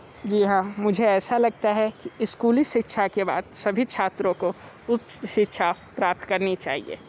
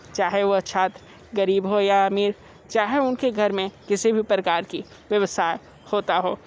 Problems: constant background noise